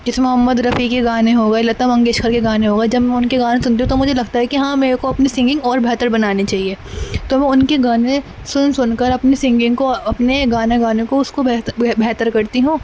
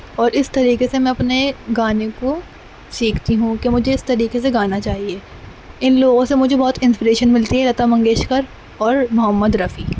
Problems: constant background noise